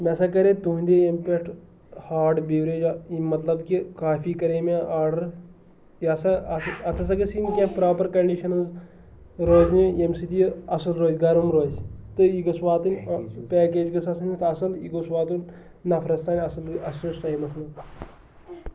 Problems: constant background noise